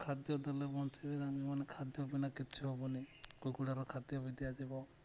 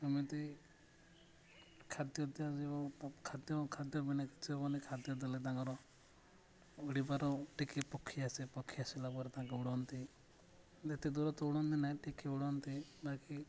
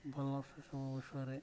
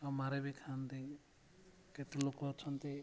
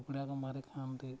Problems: none marked